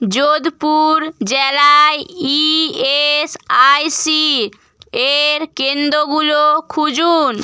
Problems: none marked